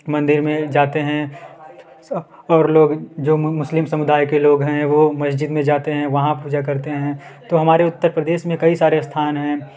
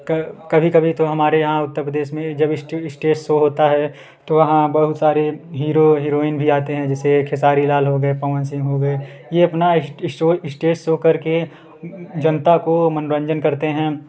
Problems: background sounds at intervals, continuous background conversations